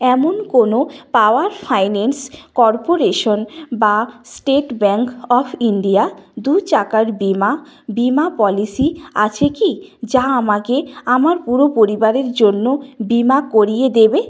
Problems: none marked